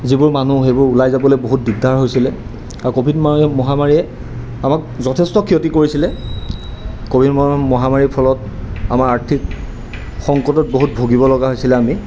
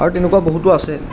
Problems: constant background noise